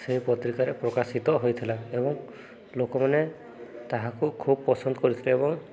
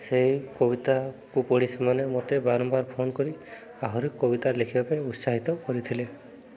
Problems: background conversations at intervals